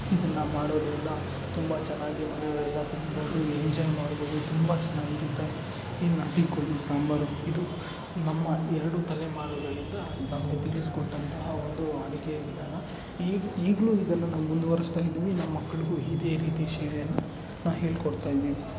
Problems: background sounds at intervals